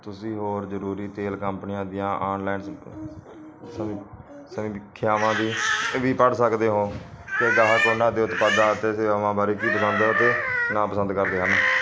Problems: background sounds at intervals